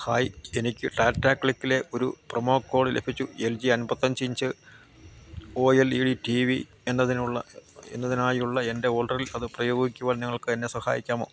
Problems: constant background noise, low volume